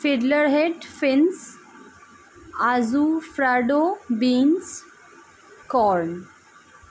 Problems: constant background noise